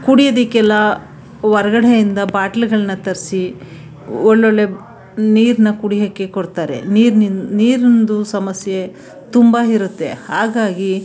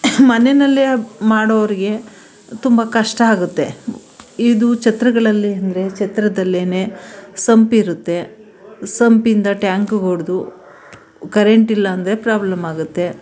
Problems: background sounds at intervals